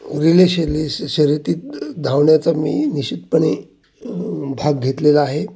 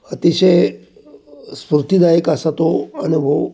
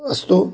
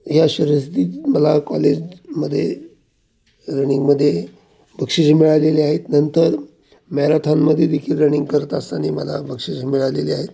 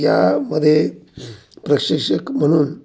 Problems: constant background noise